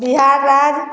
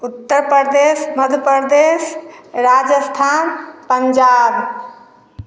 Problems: none marked